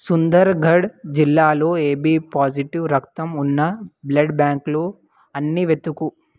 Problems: none marked